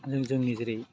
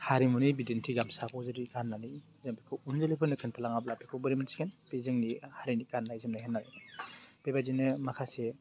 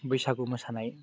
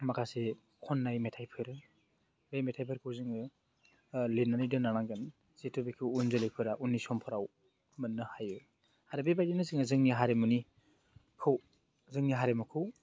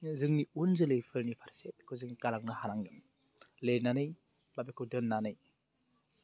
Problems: none marked